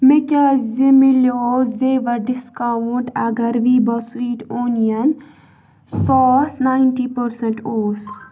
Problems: background sounds at intervals, background conversations at intervals